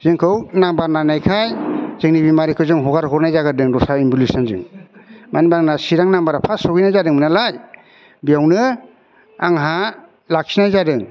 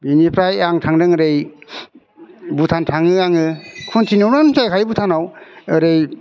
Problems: constant background noise